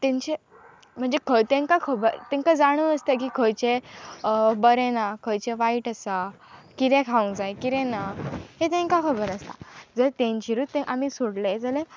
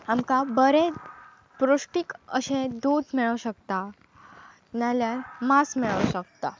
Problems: constant background noise